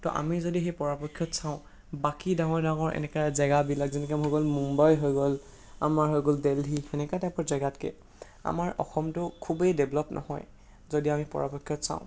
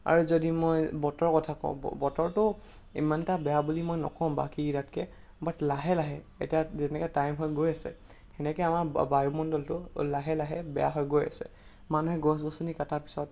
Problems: constant background noise